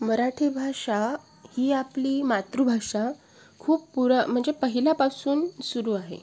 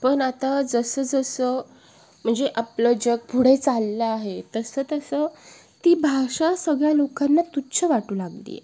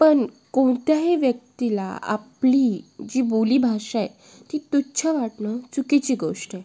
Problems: constant background noise, background conversations at intervals